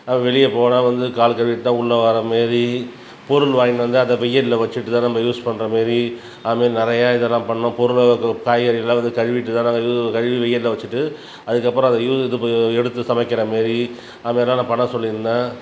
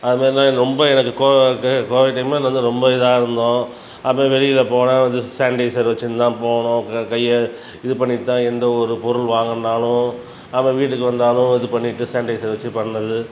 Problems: background sounds at intervals